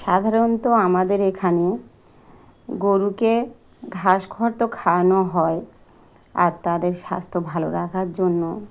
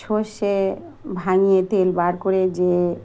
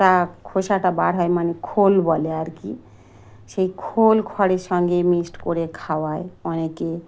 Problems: background sounds at intervals